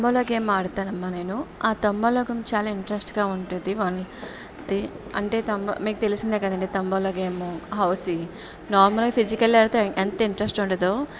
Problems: background sounds at intervals, background conversations at intervals